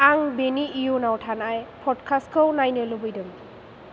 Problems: none marked